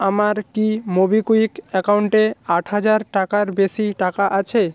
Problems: background sounds at intervals